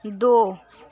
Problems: background sounds at intervals, continuous background conversations